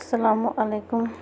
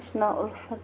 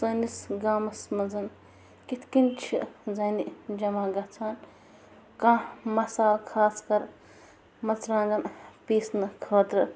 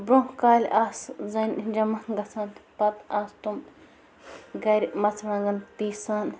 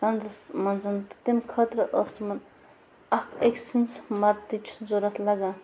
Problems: constant background noise